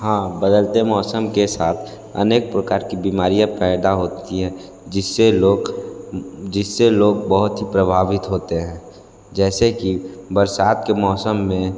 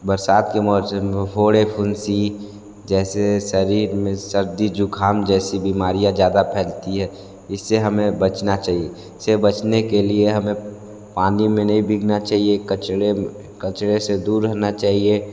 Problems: background sounds at intervals